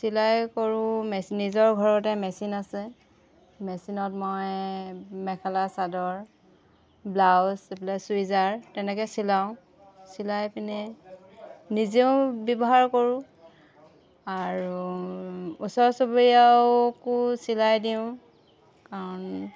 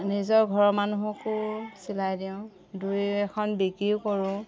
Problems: background sounds at intervals, background conversations at intervals